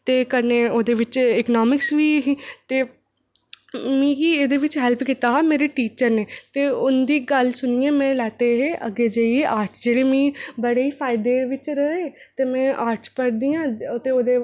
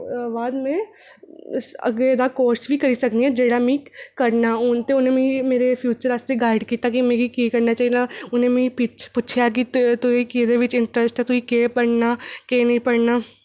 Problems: none marked